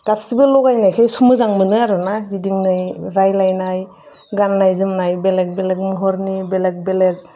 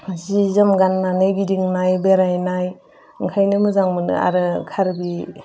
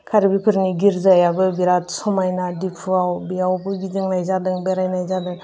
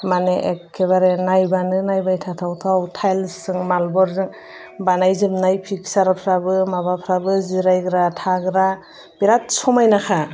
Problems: constant background noise